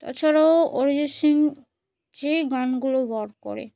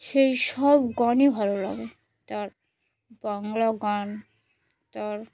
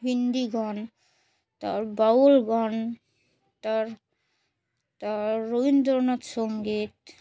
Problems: none marked